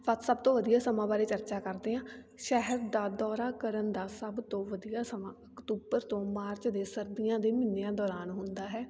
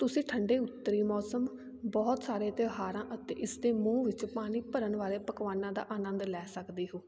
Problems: constant background noise